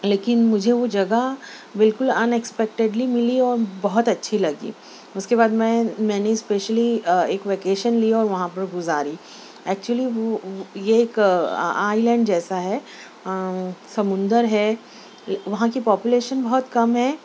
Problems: none marked